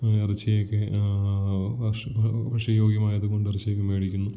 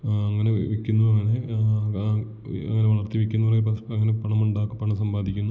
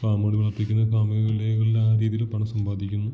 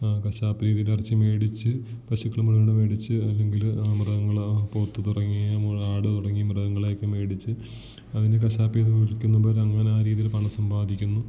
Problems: background sounds at intervals, low volume